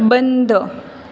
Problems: none marked